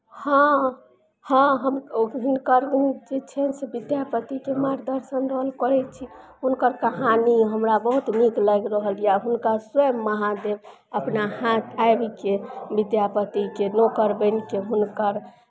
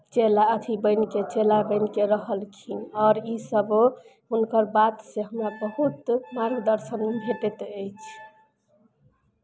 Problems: none marked